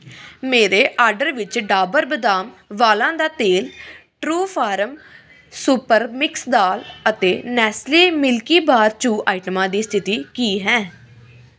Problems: none marked